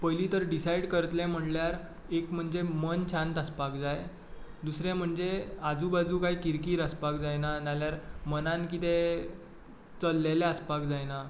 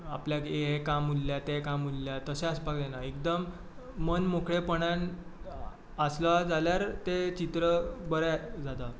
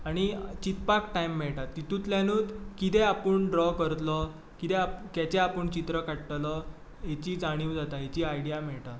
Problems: background sounds at intervals